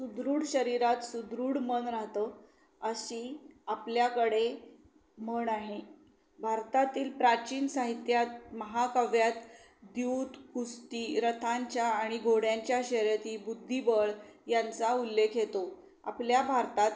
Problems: none marked